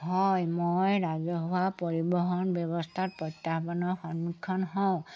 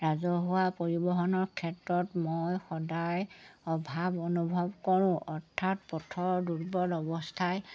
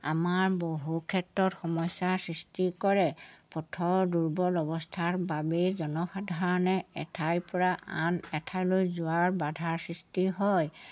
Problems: background sounds at intervals